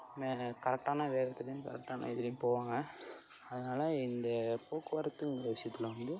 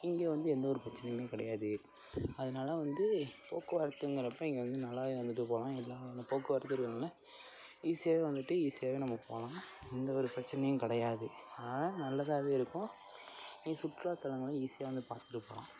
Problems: constant background noise